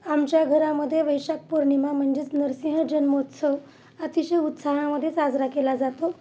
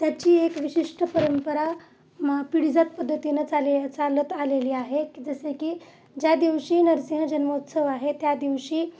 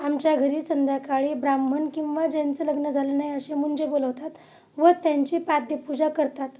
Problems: none marked